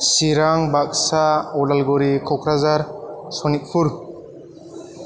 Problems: echo